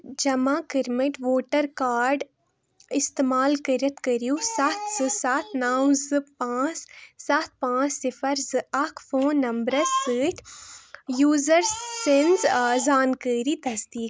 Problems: background sounds at intervals